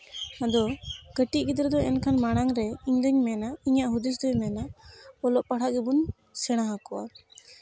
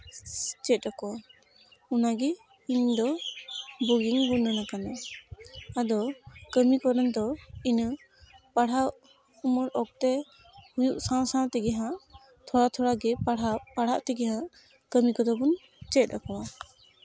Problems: none marked